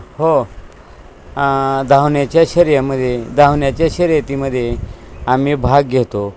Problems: constant background noise